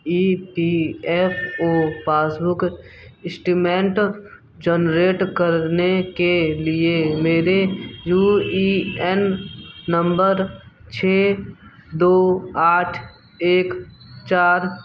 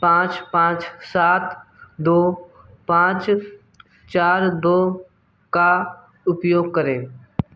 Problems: background sounds at intervals